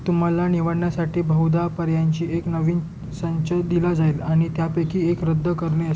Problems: background sounds at intervals